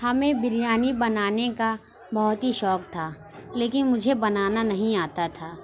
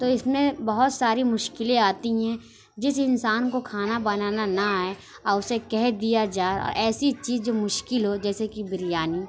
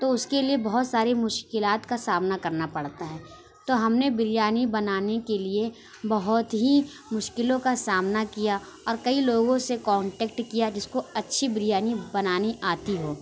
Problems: none marked